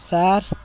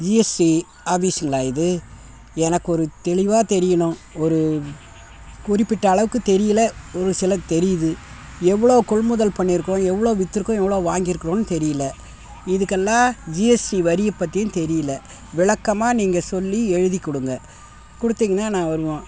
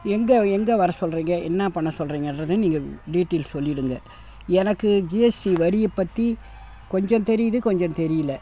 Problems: background sounds at intervals